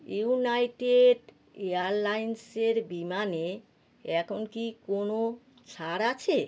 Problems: constant background noise